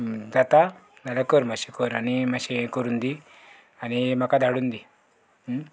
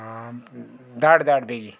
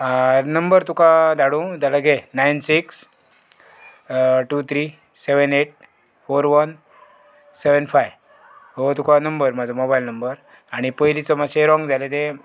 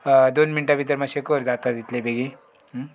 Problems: background sounds at intervals